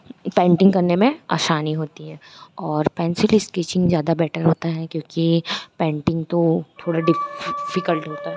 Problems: constant background noise